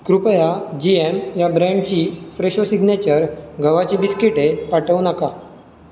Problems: none marked